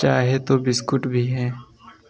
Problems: none marked